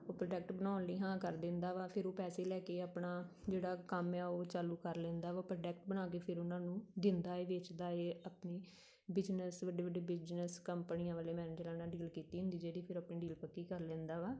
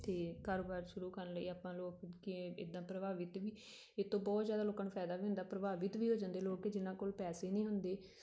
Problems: none marked